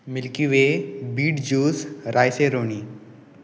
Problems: none marked